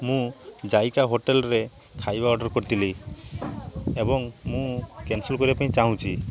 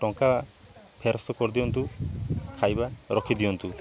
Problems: none marked